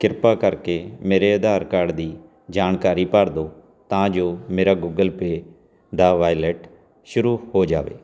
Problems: none marked